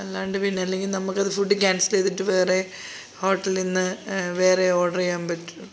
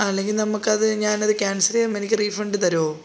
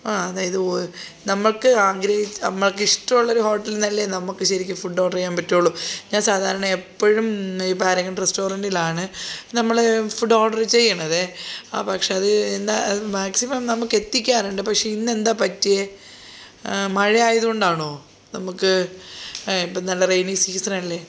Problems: background sounds at intervals, background conversations at intervals